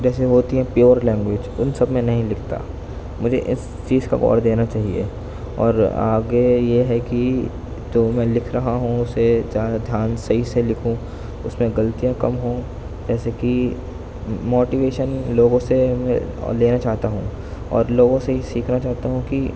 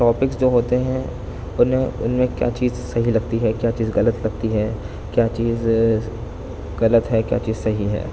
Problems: constant background noise, low volume